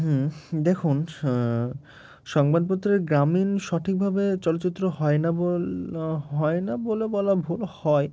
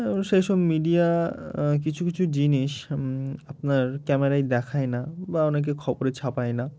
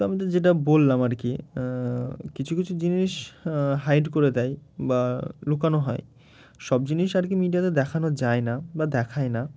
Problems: none marked